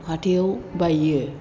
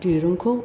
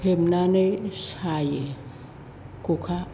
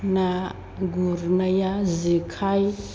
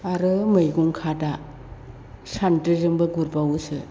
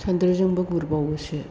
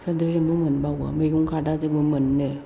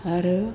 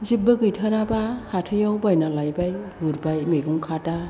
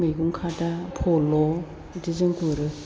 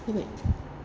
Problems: constant background noise